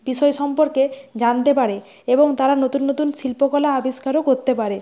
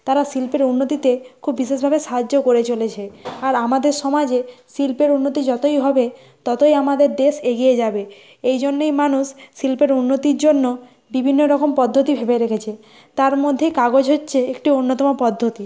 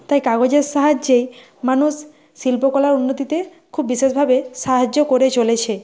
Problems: background sounds at intervals